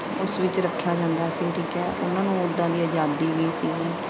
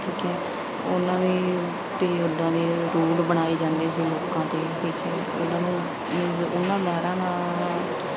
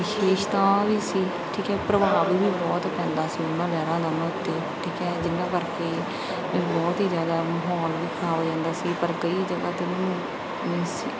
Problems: background sounds at intervals